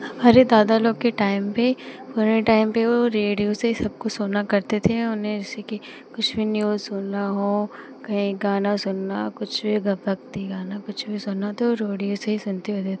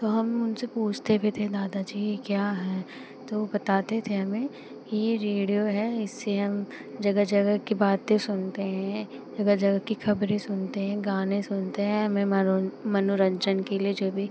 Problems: constant background noise